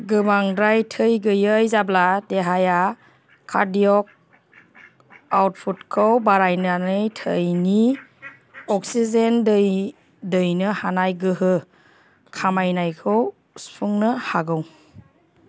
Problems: none marked